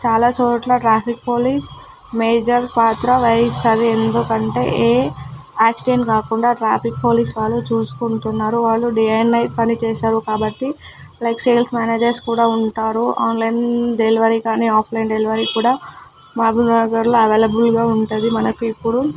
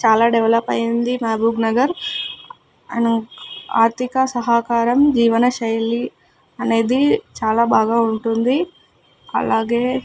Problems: constant background noise